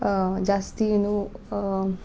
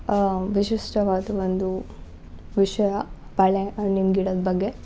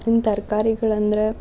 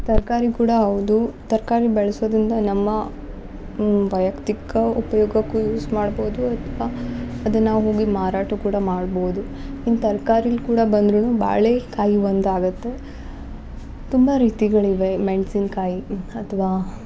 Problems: background sounds at intervals